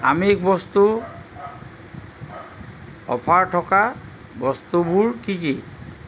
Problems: none marked